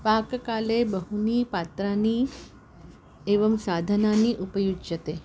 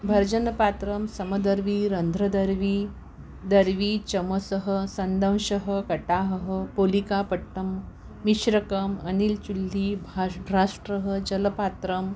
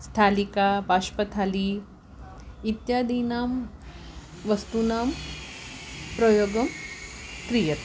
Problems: background sounds at intervals